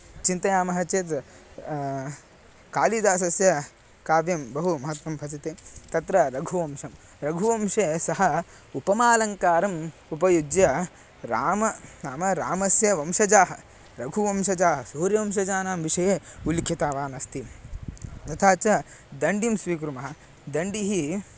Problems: background sounds at intervals